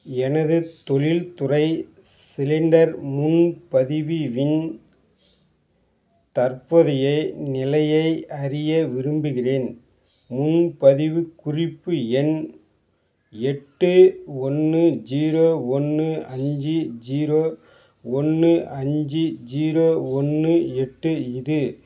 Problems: background sounds at intervals